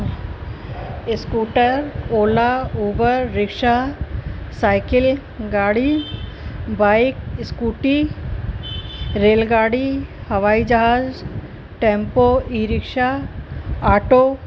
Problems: constant background noise